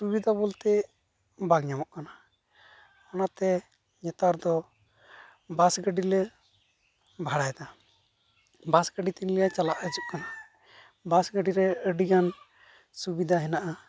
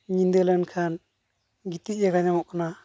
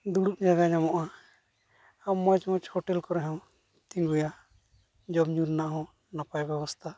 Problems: constant background noise